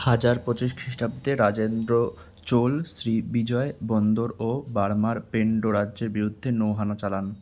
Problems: constant background noise